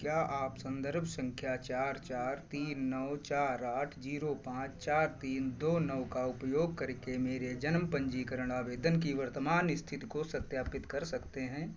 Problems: constant background noise